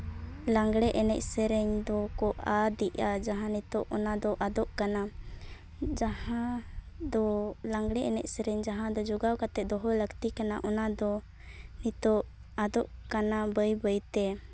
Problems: background sounds at intervals